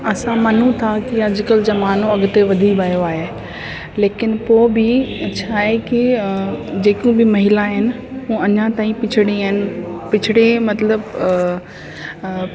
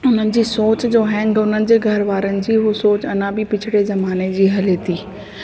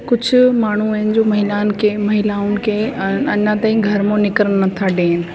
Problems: constant background noise, echo